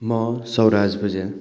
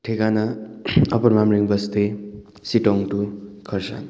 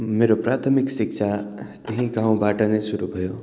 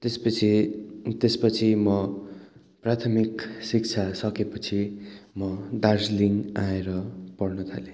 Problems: background sounds at intervals